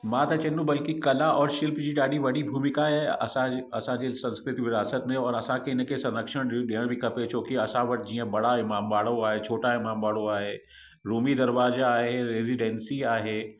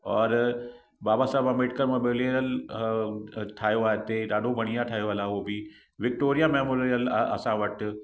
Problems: echo